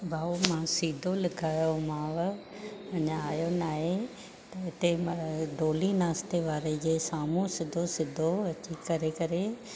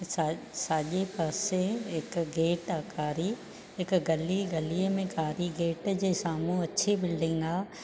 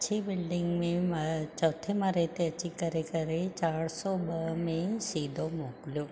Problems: constant background noise, low volume